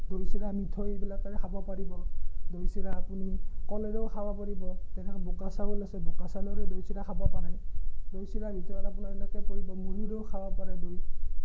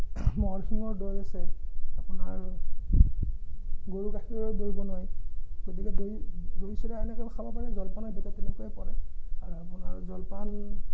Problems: none marked